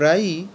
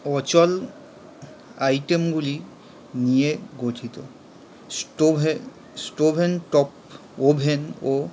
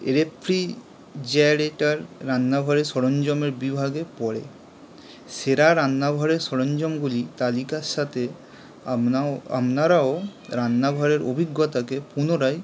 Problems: constant background noise